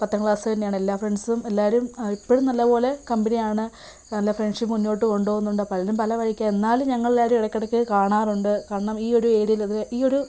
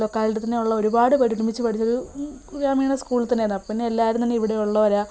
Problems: background sounds at intervals